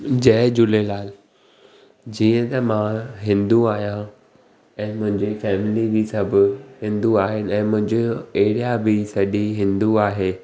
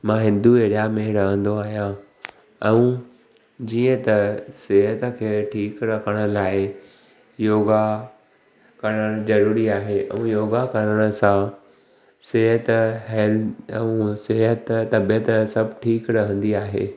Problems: none marked